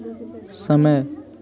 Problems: constant background noise